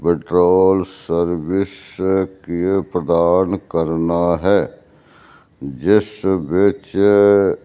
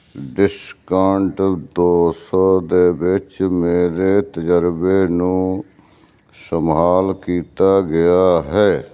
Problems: constant background noise